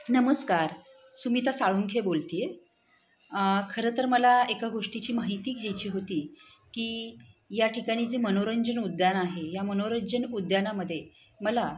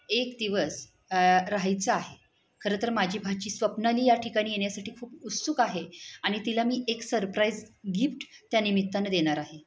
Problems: background sounds at intervals, background conversations at intervals